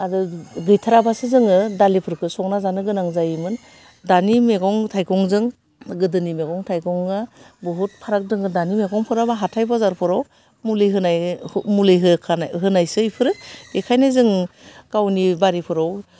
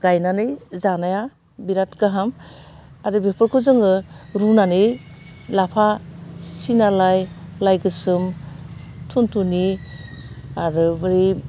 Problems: none marked